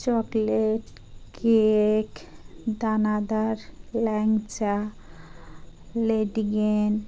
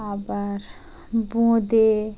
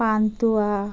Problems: none marked